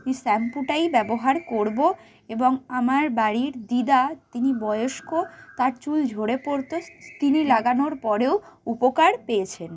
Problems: constant background noise